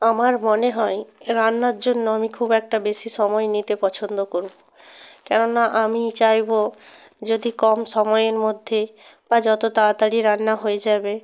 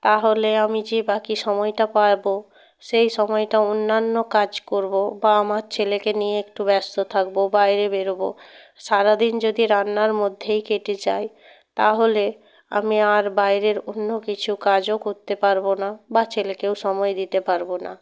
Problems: constant background noise